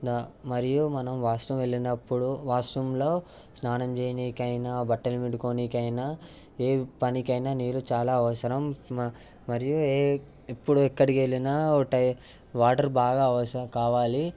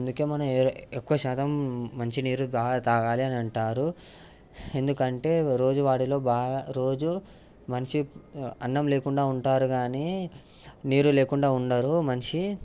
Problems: constant background noise